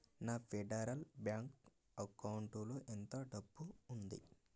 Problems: low volume